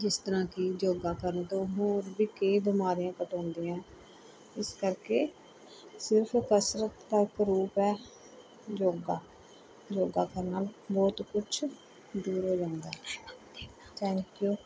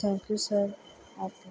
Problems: background sounds at intervals, background conversations at intervals